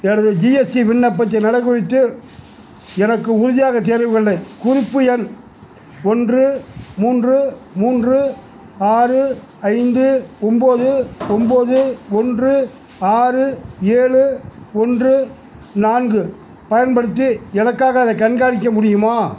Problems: none marked